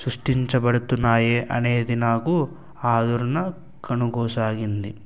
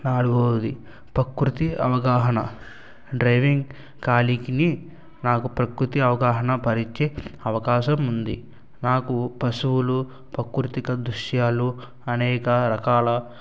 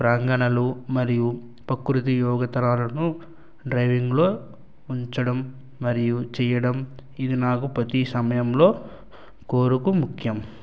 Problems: none marked